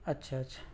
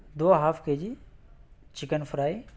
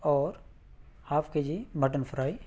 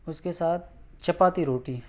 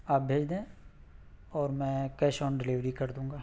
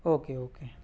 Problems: none marked